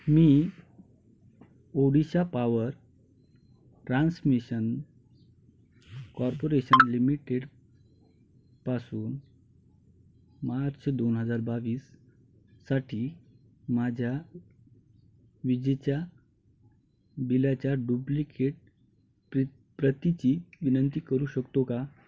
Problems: none marked